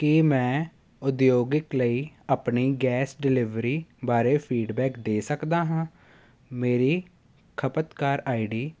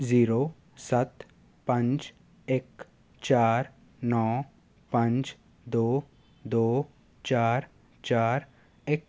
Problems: constant background noise